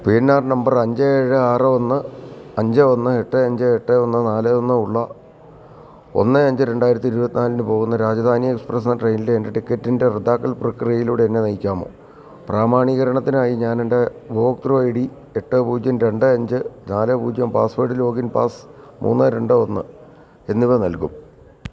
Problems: background conversations at intervals